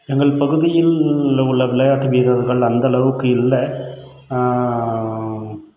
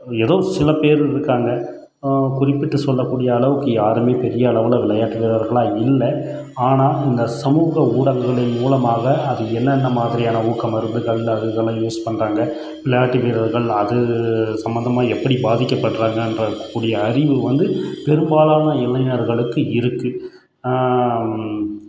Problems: background sounds at intervals